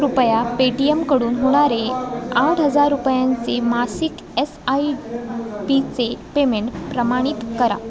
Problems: constant background noise, continuous background conversations